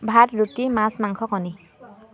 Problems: none marked